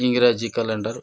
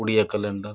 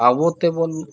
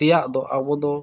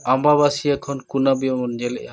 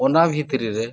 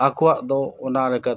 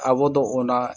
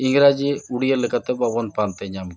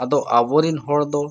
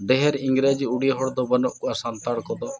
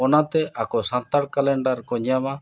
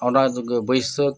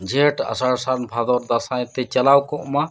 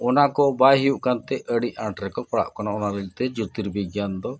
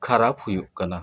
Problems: constant background noise, background conversations at intervals